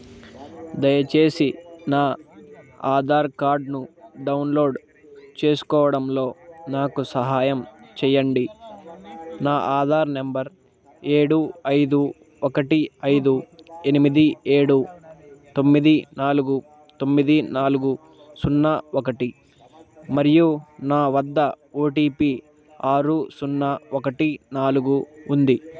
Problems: constant background noise